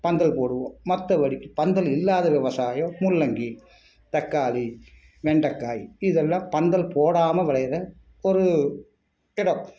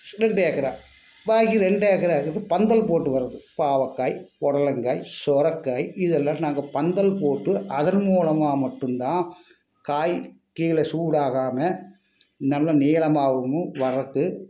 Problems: none marked